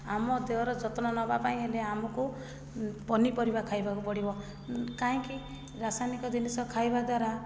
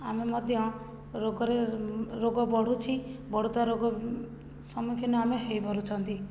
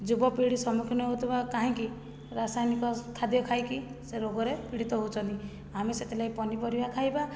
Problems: low volume